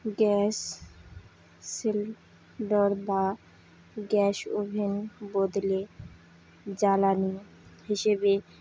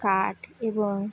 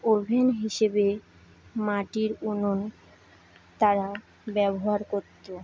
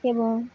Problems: constant background noise, background conversations at intervals